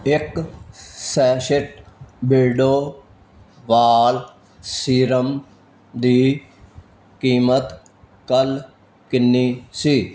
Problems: none marked